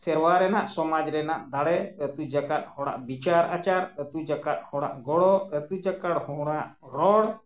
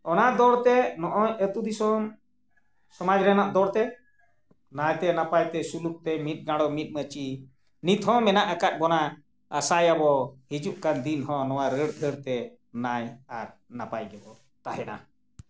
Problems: none marked